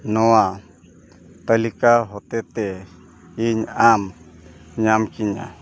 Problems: none marked